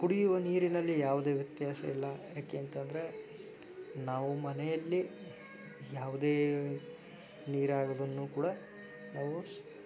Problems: background sounds at intervals